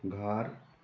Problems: background sounds at intervals